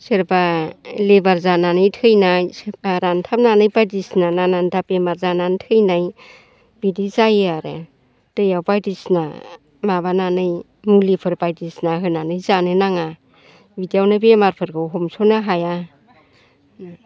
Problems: constant background noise